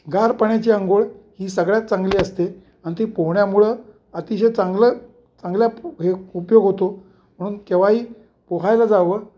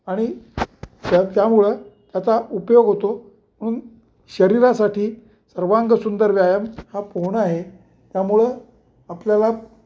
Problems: none marked